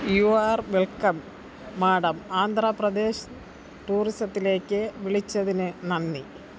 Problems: low volume